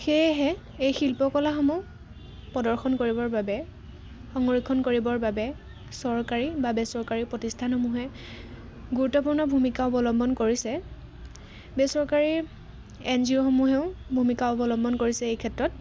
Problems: constant background noise